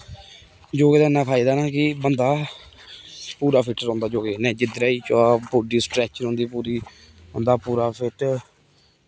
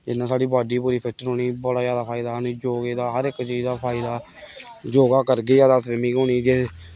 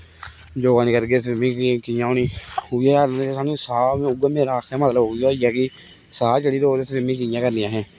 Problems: none marked